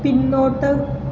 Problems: constant background noise